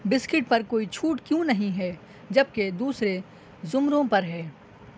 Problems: none marked